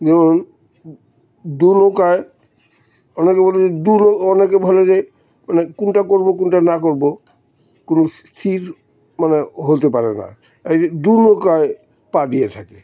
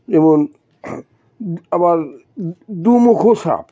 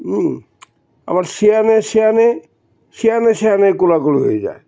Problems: constant background noise